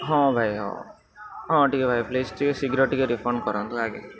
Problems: constant background noise